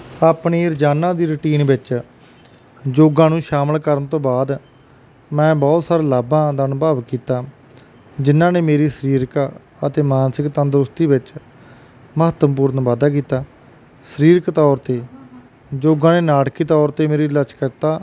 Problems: none marked